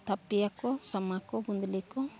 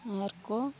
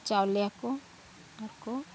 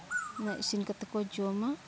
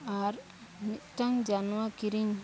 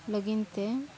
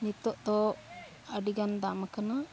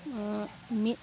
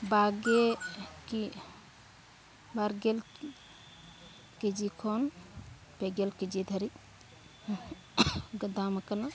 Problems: background sounds at intervals, background conversations at intervals